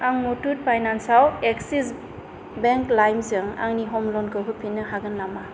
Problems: constant background noise